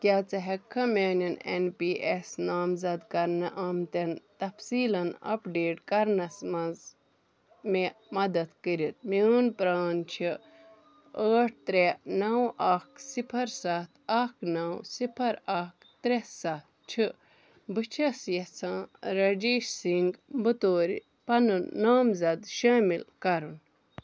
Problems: none marked